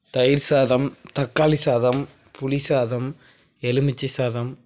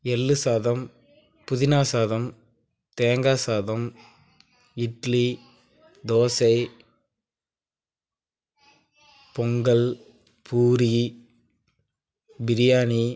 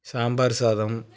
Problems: none marked